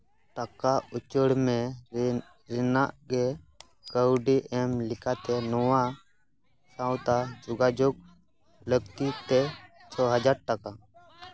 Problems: background sounds at intervals, background conversations at intervals